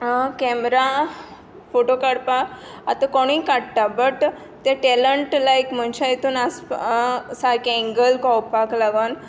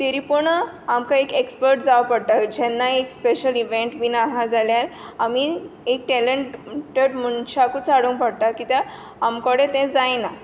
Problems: constant background noise